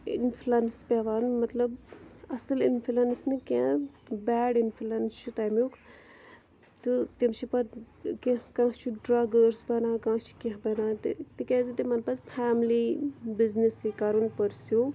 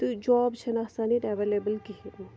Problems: none marked